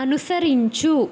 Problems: constant background noise